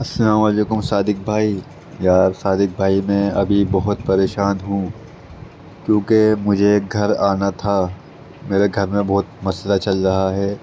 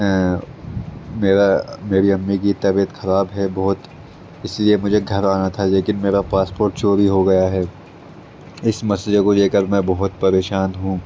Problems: constant background noise